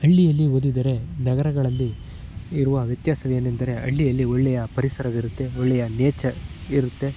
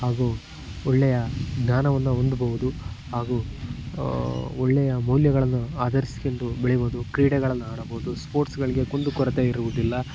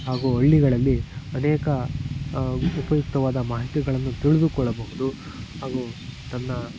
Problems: background sounds at intervals